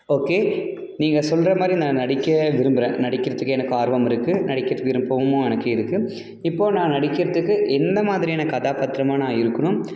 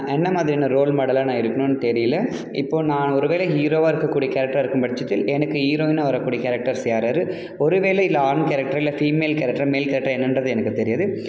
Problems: none marked